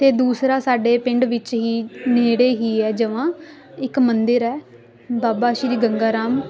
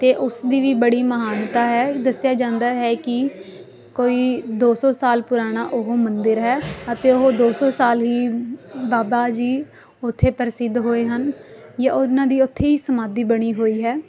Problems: constant background noise